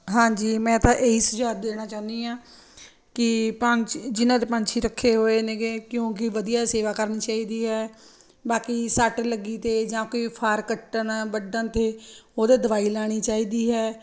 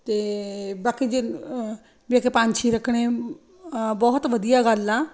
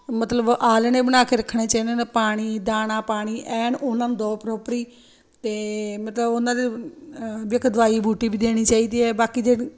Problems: constant background noise